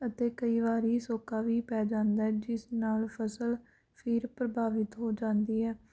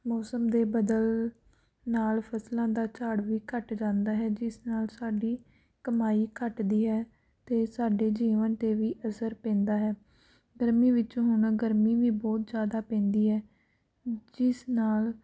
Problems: none marked